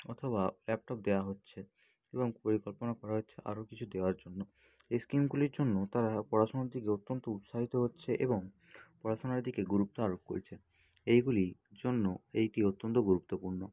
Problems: none marked